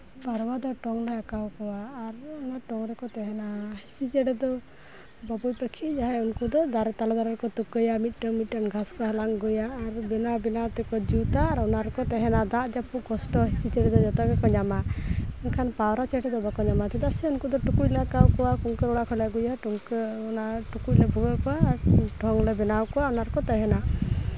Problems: none marked